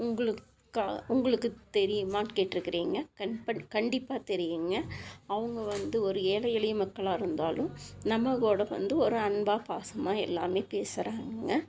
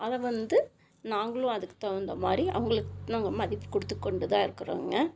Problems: constant background noise